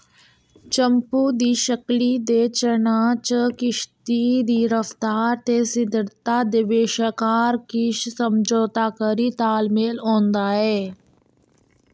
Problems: echo